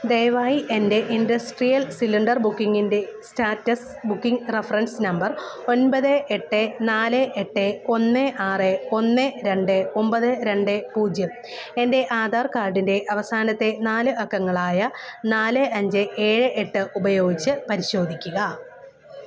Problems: none marked